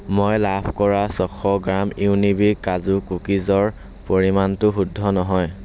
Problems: constant background noise